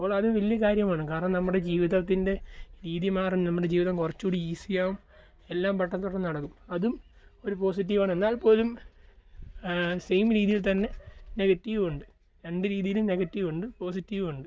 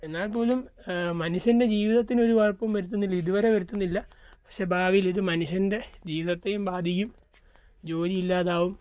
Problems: none marked